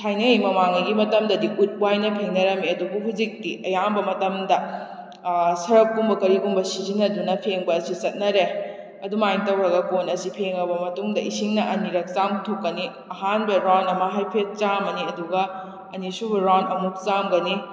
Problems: echo